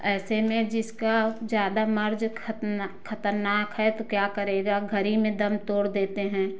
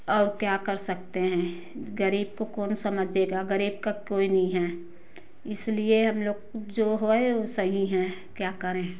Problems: none marked